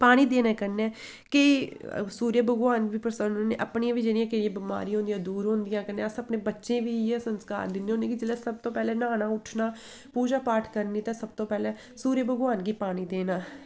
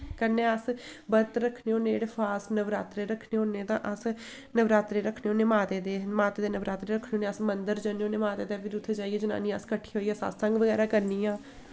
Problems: constant background noise